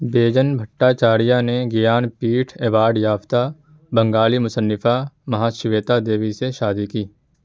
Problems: constant background noise